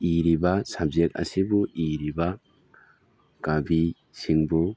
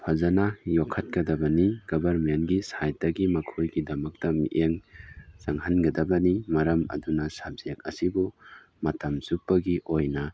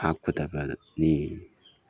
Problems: none marked